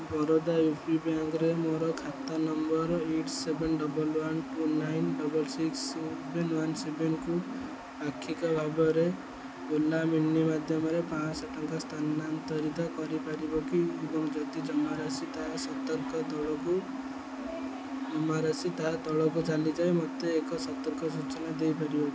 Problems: low volume